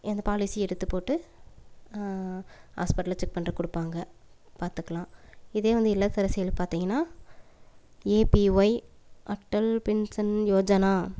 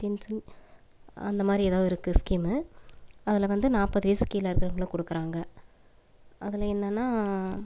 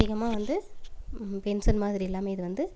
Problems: background sounds at intervals